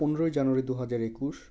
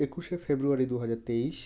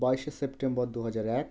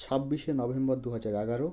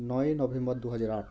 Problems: background sounds at intervals